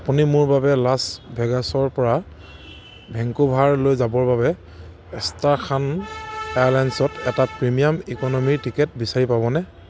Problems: none marked